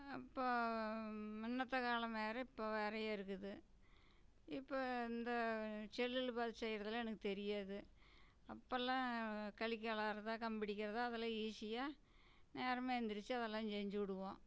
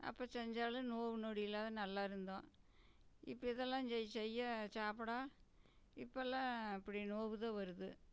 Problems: none marked